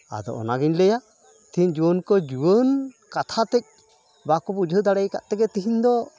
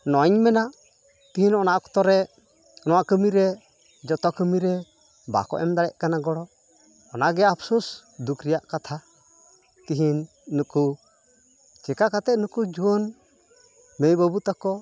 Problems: constant background noise, continuous background conversations